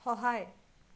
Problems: none marked